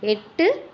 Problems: background sounds at intervals